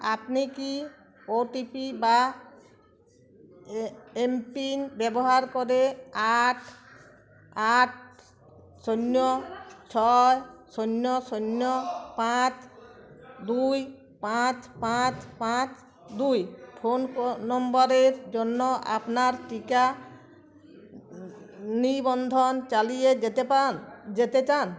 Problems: continuous background conversations